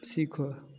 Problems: none marked